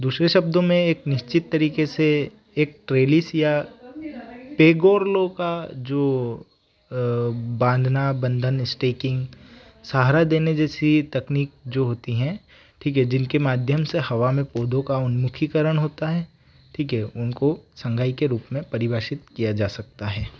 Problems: background sounds at intervals